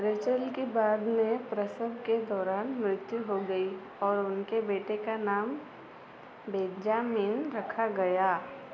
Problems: none marked